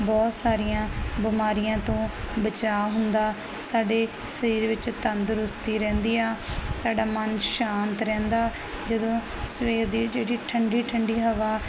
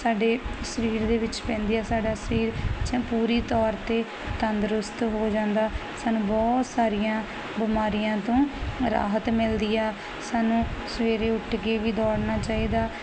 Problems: none marked